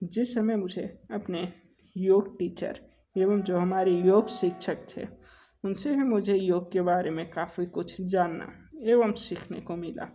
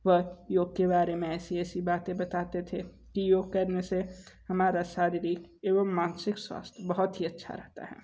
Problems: none marked